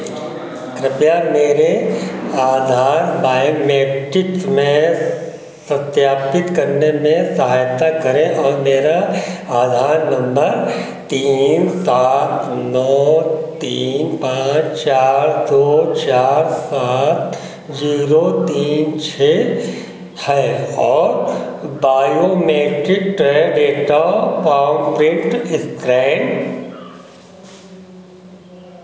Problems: constant background noise